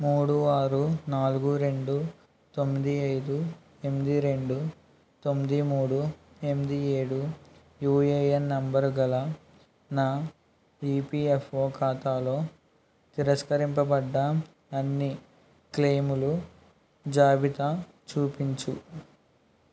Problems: constant background noise